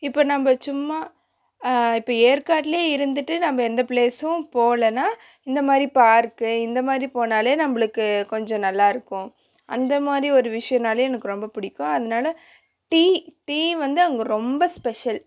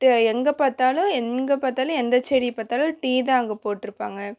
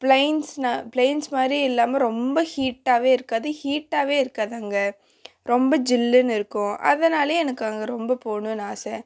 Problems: constant background noise